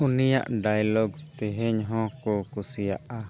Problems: background sounds at intervals